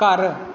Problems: background sounds at intervals